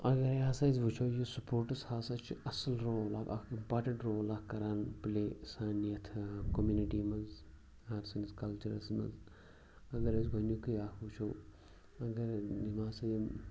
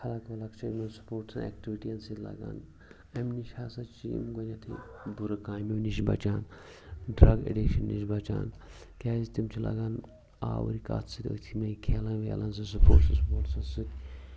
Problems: constant background noise, background conversations at intervals